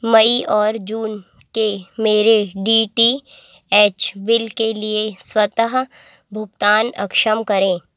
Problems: none marked